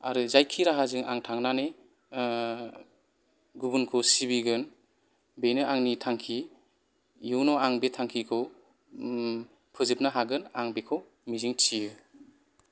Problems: background sounds at intervals